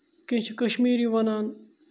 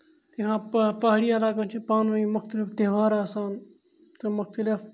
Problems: none marked